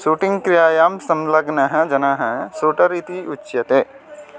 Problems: none marked